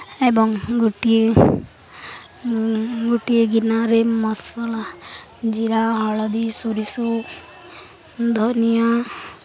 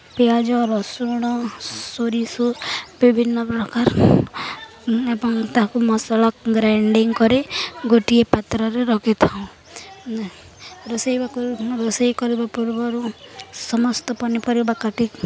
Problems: none marked